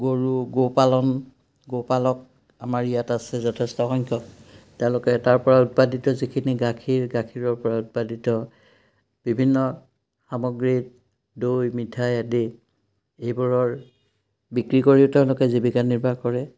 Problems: background sounds at intervals